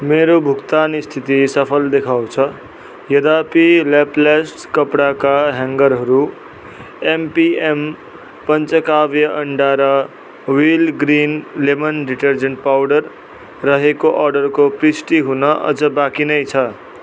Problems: none marked